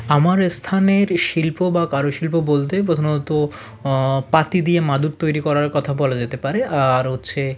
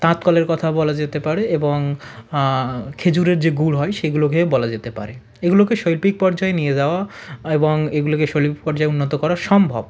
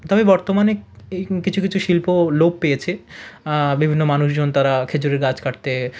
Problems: none marked